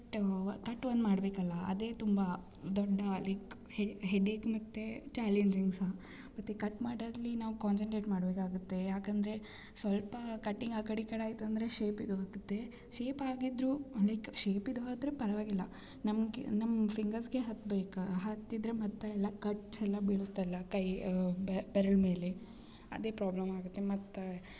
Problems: none marked